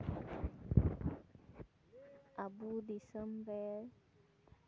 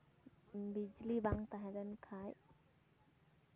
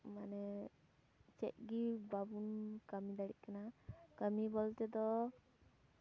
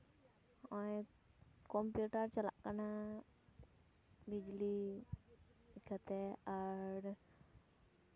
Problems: background sounds at intervals, continuous background conversations